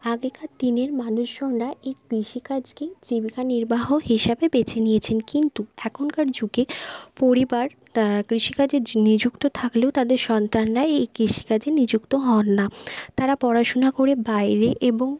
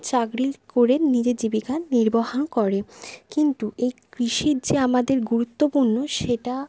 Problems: none marked